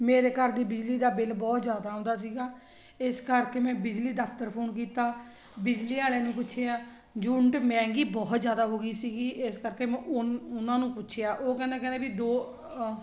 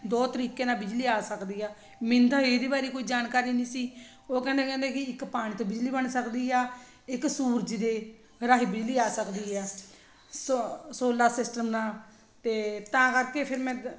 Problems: none marked